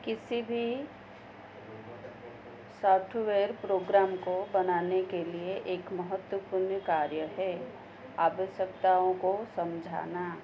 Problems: constant background noise